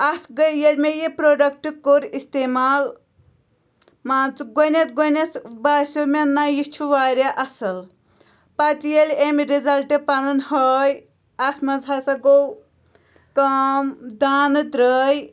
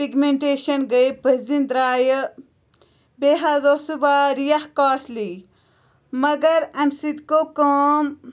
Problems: none marked